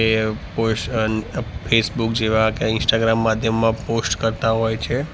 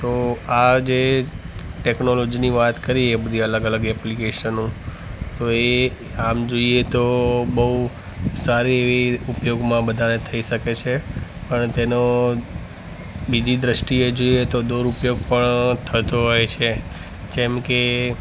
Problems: background sounds at intervals